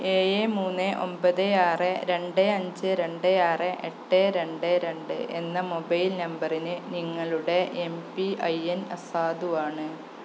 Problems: constant background noise